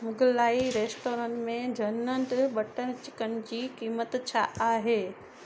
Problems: constant background noise